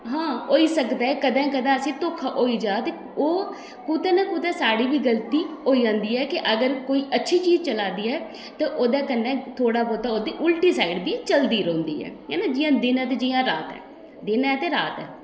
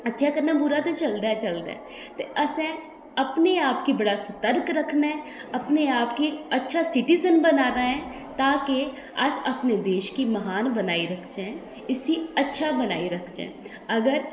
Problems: background sounds at intervals, echo